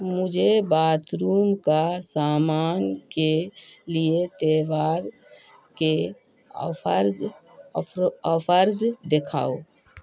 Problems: constant background noise